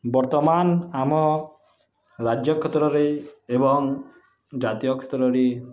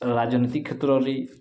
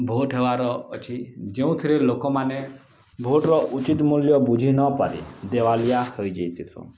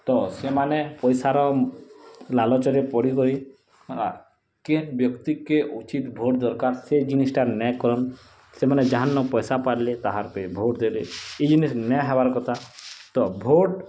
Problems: background sounds at intervals